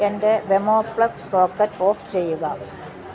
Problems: none marked